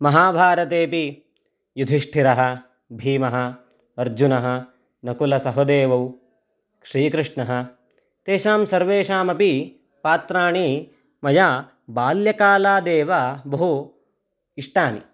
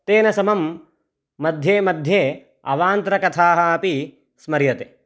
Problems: none marked